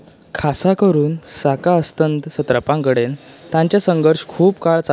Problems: constant background noise